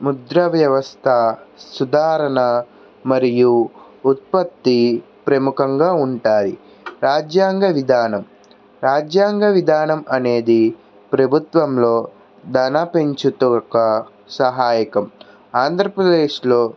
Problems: none marked